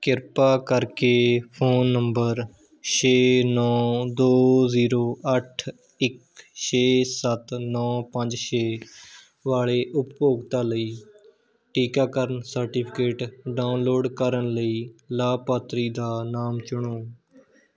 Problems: background conversations at intervals